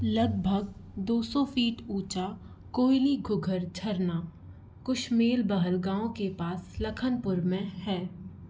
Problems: constant background noise